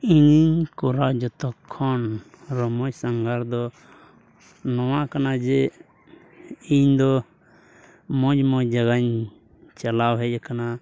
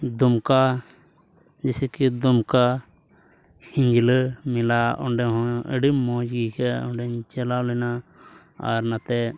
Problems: none marked